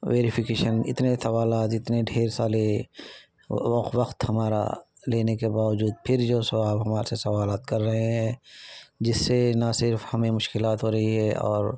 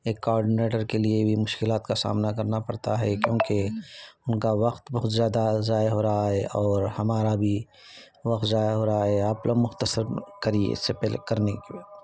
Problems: constant background noise, background conversations at intervals